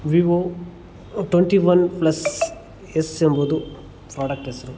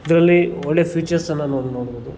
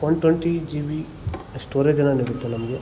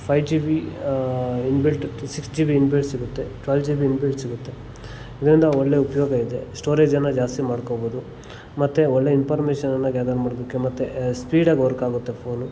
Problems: none marked